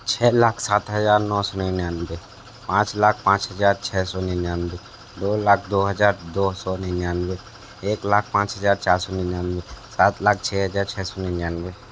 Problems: constant background noise